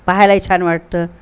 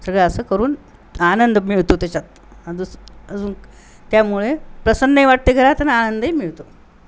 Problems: none marked